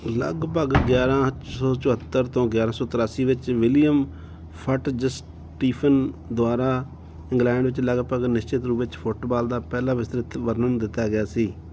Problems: none marked